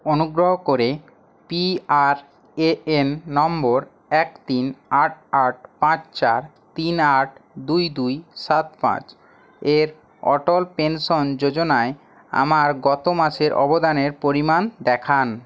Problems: none marked